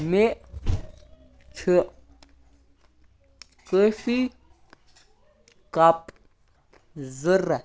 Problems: constant background noise